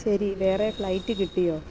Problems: none marked